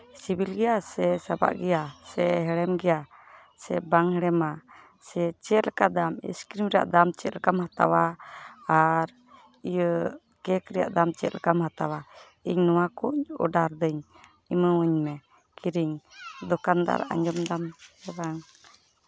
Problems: background sounds at intervals, background conversations at intervals